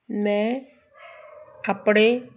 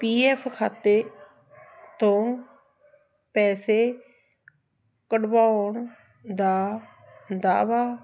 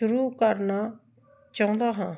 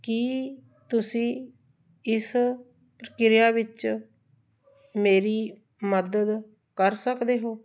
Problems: background sounds at intervals